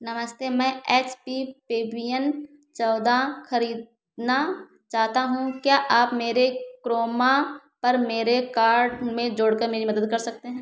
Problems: none marked